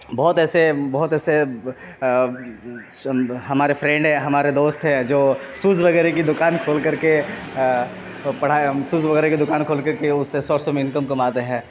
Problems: constant background noise